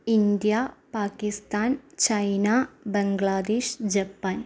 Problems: low volume